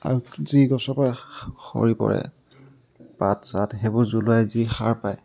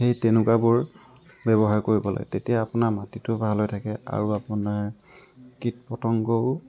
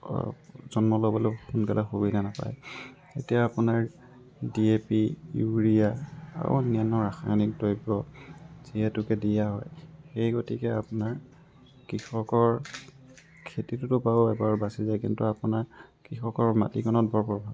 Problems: background sounds at intervals